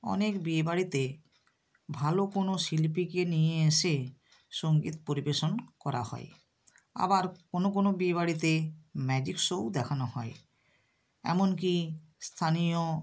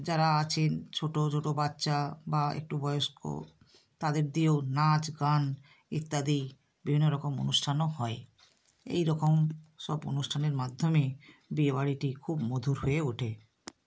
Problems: constant background noise